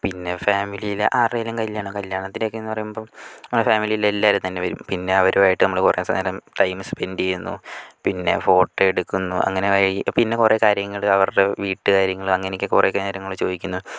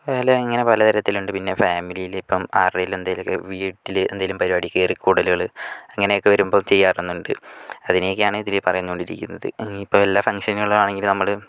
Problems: none marked